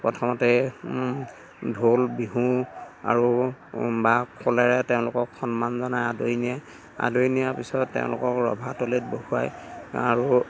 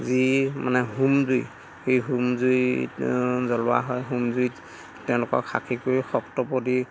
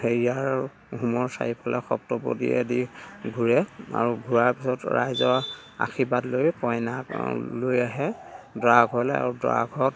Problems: none marked